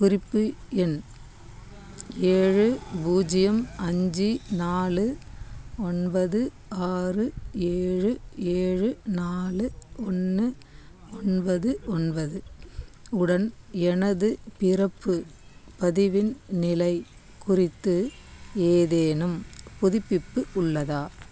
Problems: constant background noise